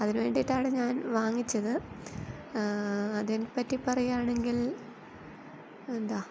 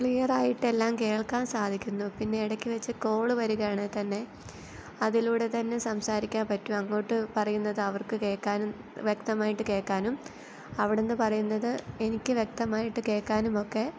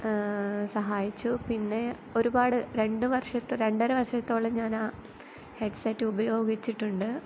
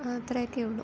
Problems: none marked